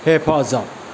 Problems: constant background noise